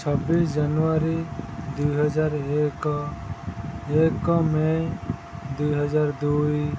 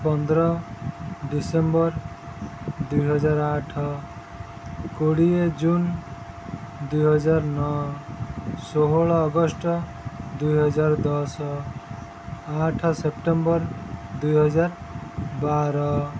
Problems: constant background noise